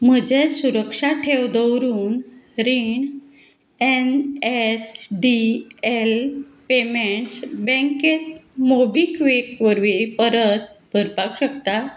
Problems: none marked